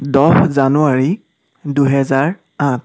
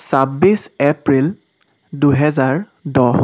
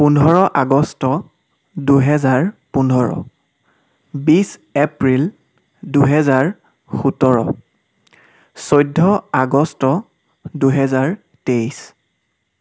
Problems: background sounds at intervals